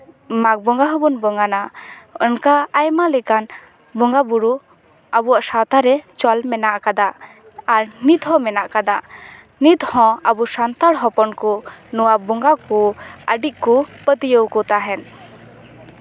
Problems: none marked